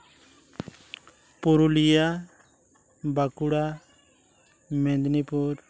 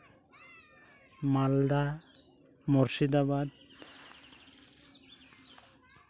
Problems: constant background noise